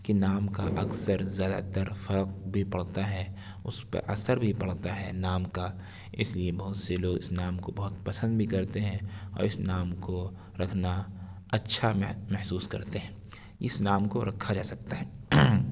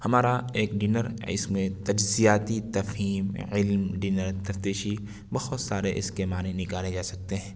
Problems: background sounds at intervals